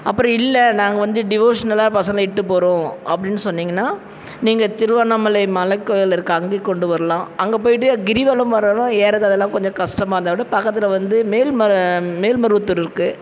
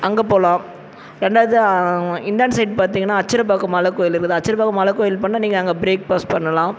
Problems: background sounds at intervals